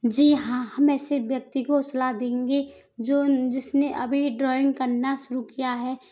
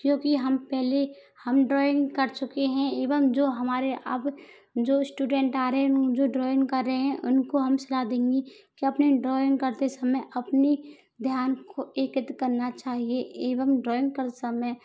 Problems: background sounds at intervals